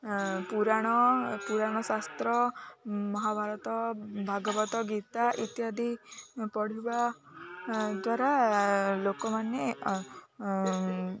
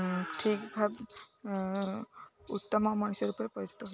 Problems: constant background noise, continuous background conversations